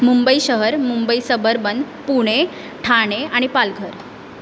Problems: constant background noise